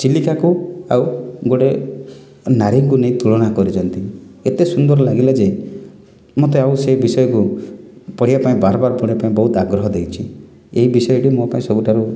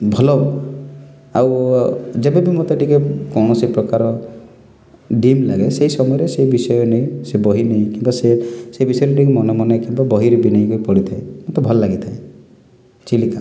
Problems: none marked